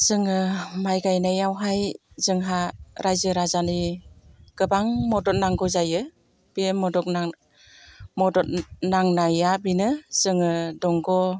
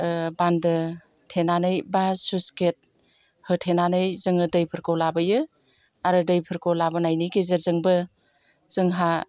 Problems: constant background noise